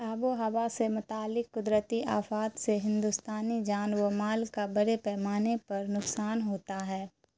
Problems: constant background noise